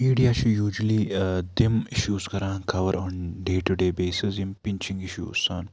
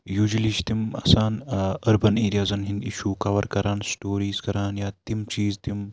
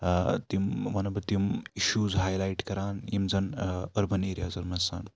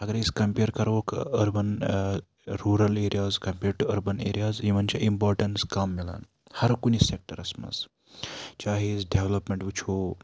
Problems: constant background noise